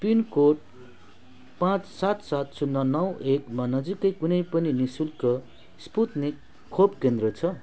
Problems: background sounds at intervals